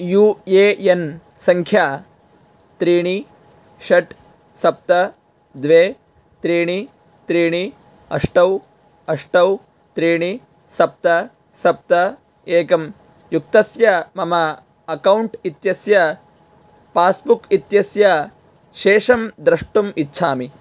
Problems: none marked